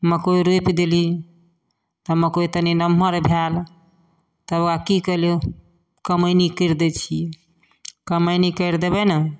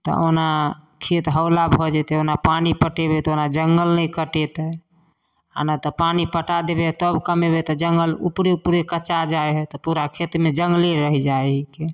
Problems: none marked